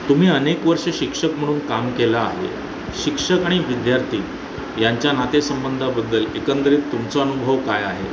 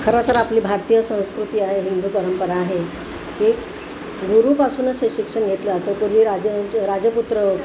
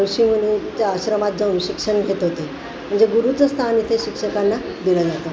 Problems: constant background noise